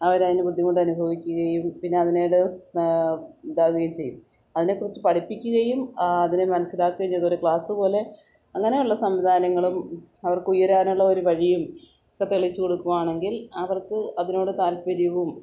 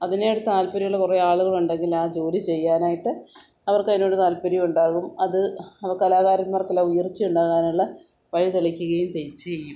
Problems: none marked